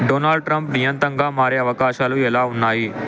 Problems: constant background noise